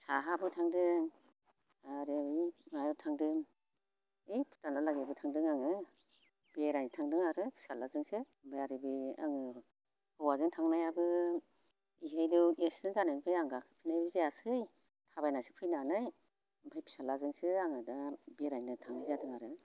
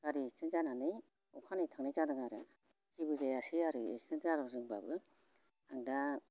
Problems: constant background noise